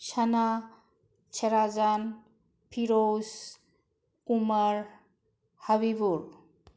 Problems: low volume